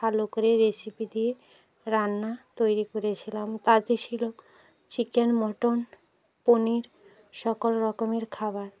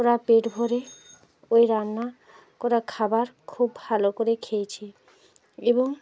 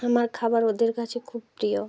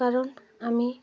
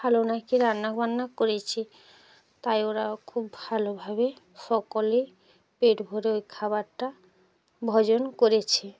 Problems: background sounds at intervals, continuous background conversations